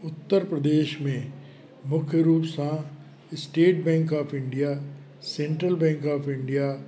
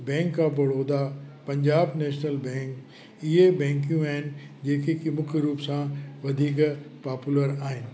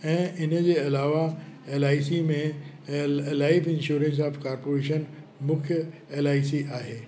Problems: constant background noise, echo